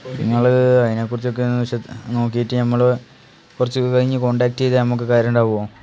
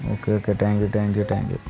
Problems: constant background noise